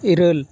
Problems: constant background noise, continuous background conversations